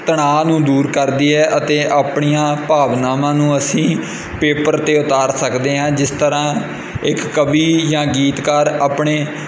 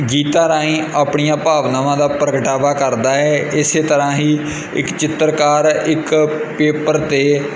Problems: constant background noise